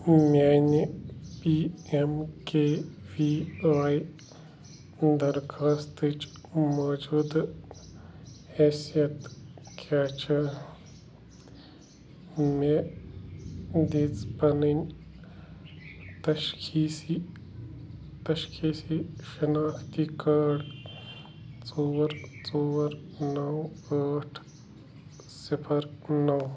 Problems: constant background noise